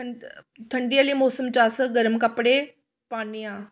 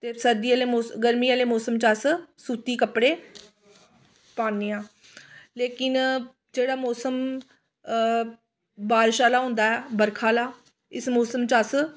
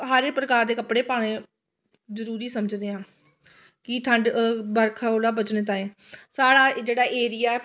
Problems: none marked